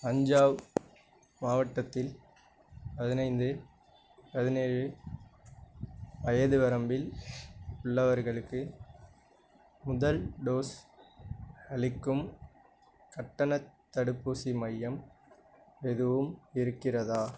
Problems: none marked